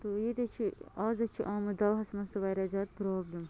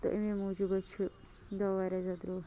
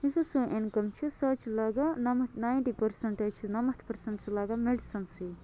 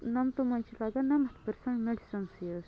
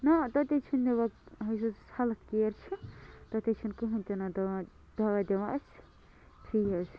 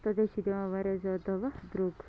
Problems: constant background noise